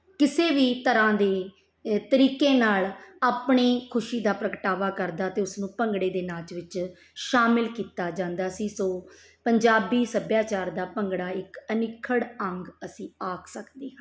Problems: background sounds at intervals